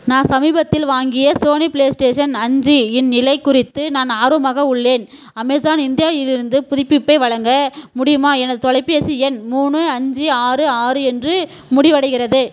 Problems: constant background noise